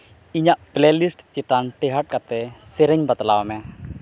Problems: background sounds at intervals